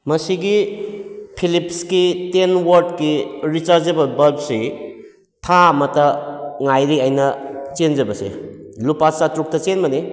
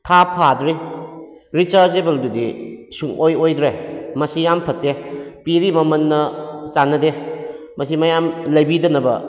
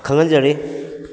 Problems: background sounds at intervals